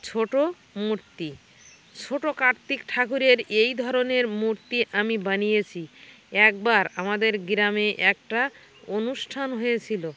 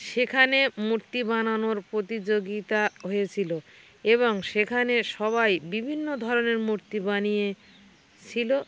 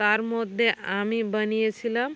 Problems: constant background noise, background conversations at intervals